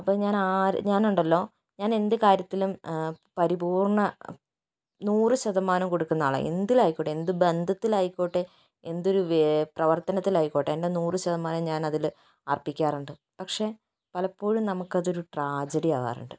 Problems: none marked